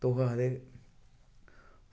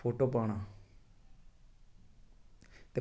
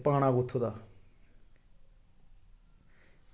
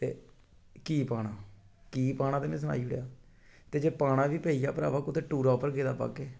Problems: none marked